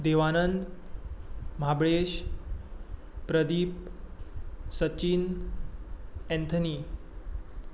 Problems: constant background noise